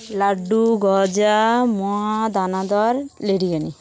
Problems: constant background noise, continuous background conversations